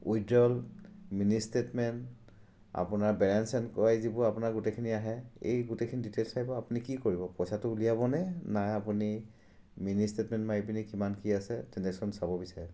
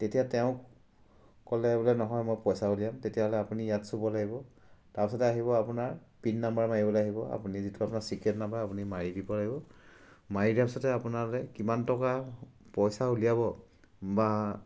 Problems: none marked